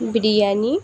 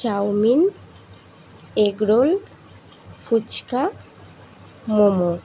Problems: none marked